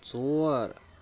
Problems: background conversations at intervals